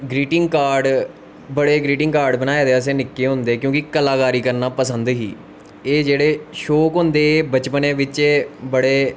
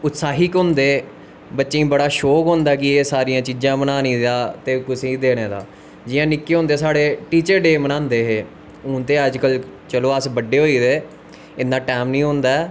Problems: constant background noise